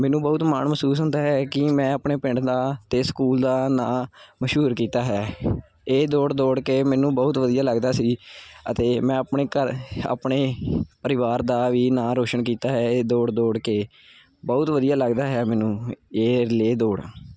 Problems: none marked